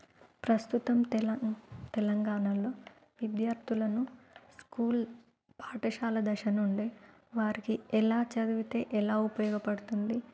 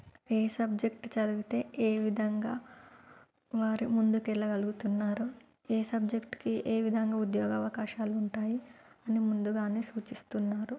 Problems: low volume